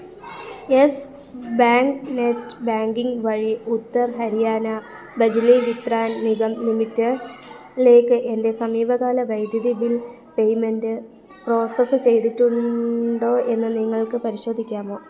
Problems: background conversations at intervals